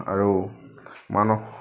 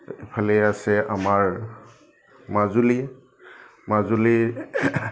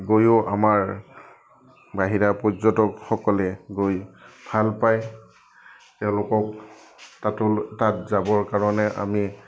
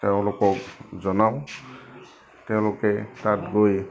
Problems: none marked